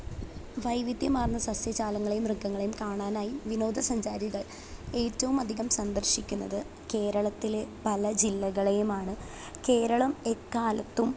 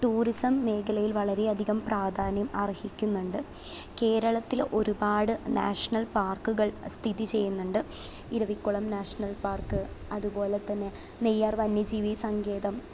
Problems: constant background noise, low volume